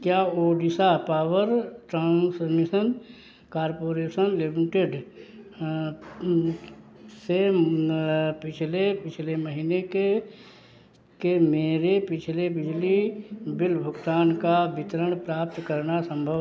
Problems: background sounds at intervals